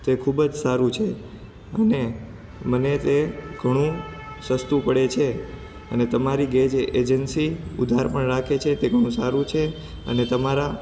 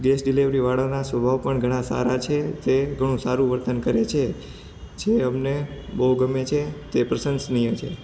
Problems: background sounds at intervals